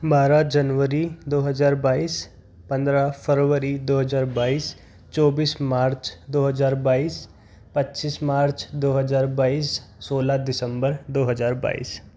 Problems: constant background noise